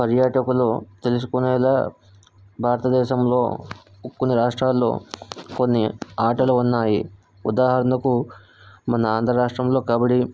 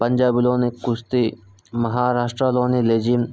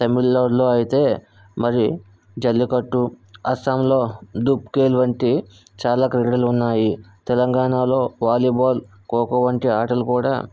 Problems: none marked